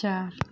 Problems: background sounds at intervals